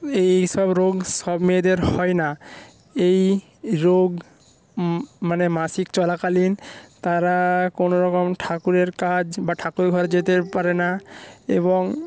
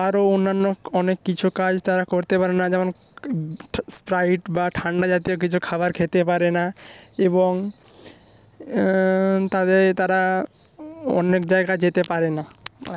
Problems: background sounds at intervals